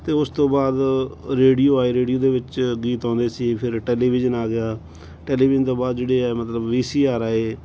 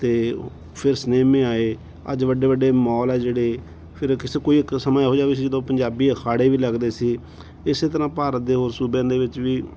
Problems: background sounds at intervals